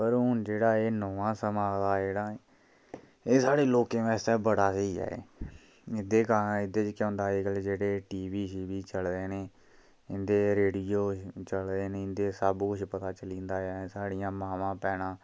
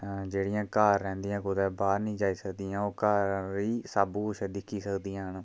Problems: none marked